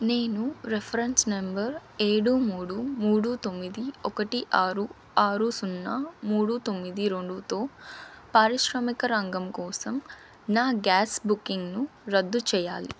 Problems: constant background noise